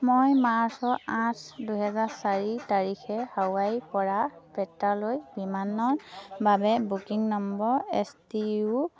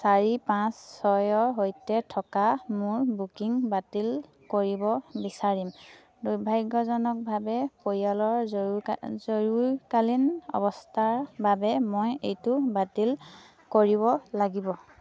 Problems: constant background noise, continuous background conversations